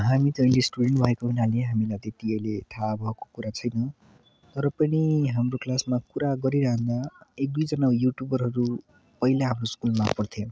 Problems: background sounds at intervals